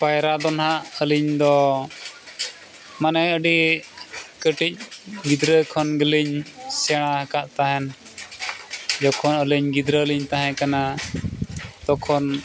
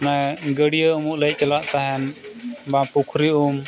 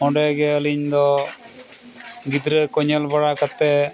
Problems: constant background noise